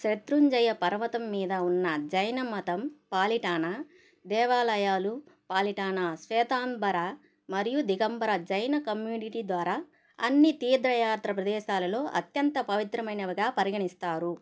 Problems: none marked